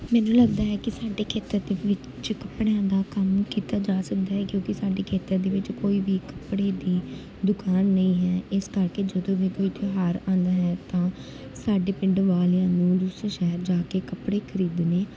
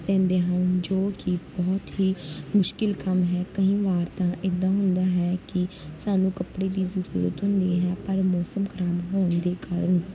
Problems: background sounds at intervals